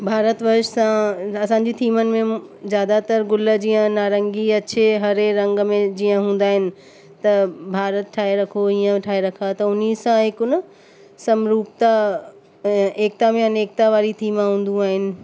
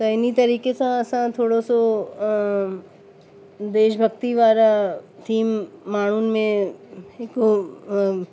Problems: constant background noise